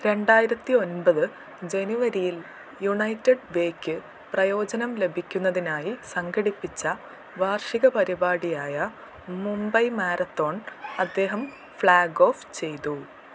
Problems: constant background noise, low volume